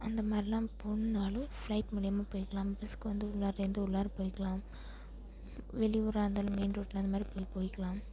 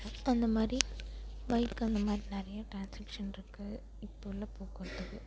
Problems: constant background noise